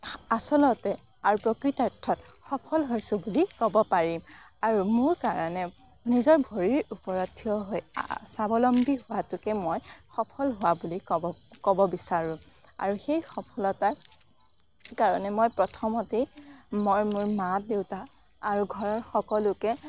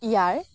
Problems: background sounds at intervals, background conversations at intervals